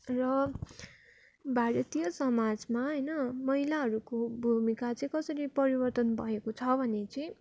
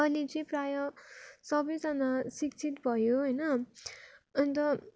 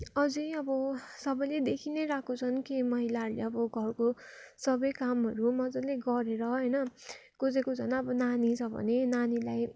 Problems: none marked